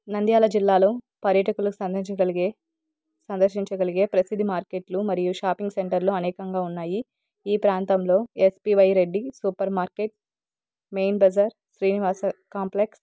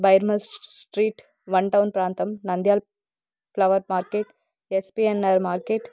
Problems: none marked